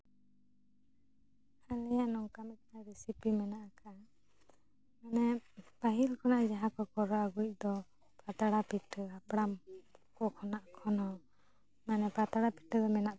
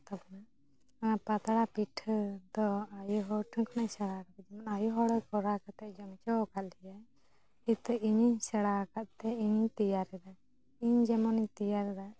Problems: low volume